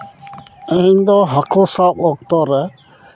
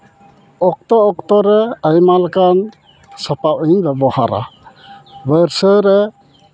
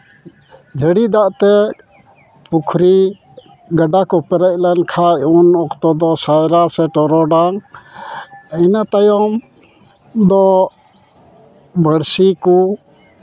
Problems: constant background noise, background conversations at intervals